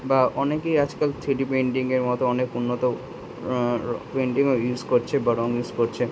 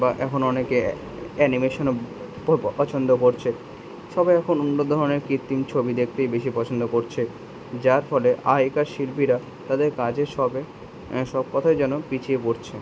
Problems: background sounds at intervals